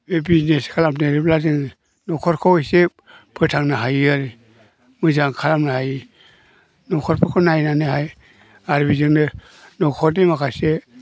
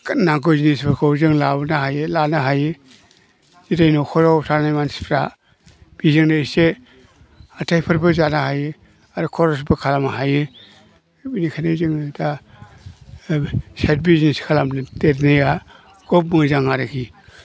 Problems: low volume